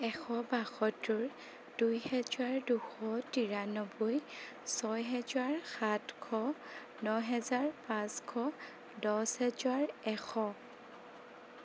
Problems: constant background noise